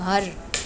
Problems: background sounds at intervals